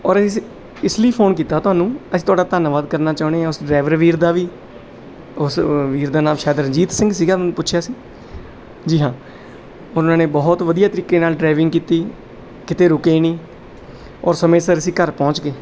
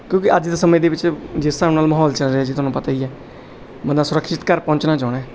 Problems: none marked